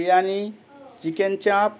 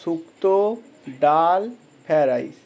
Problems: constant background noise